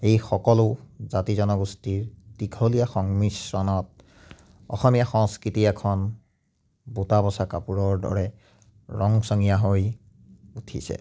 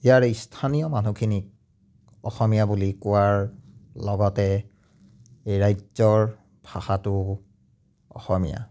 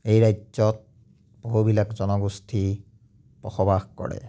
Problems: none marked